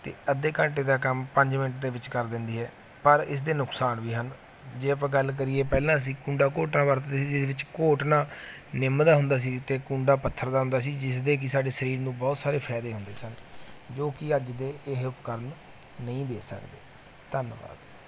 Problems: none marked